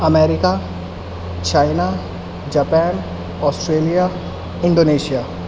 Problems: constant background noise